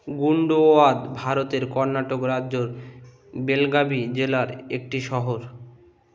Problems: constant background noise, continuous background conversations